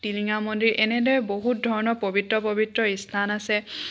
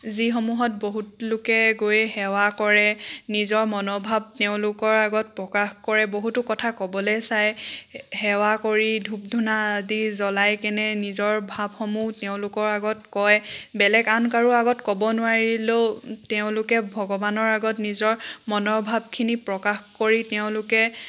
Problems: none marked